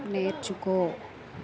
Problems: constant background noise